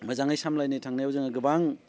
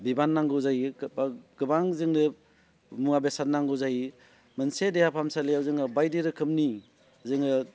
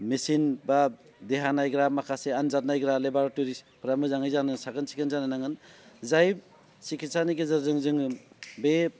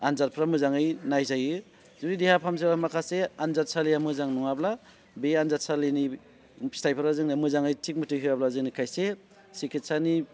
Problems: constant background noise